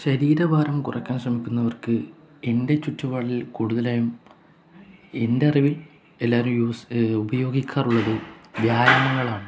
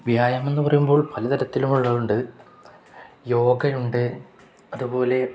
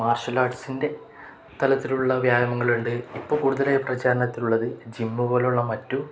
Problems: none marked